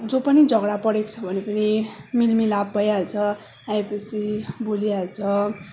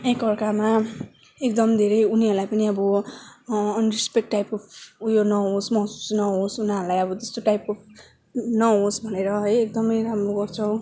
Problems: background sounds at intervals